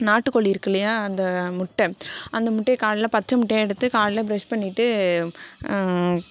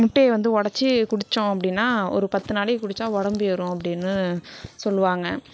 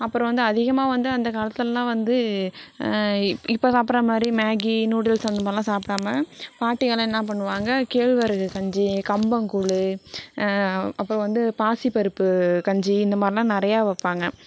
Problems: background conversations at intervals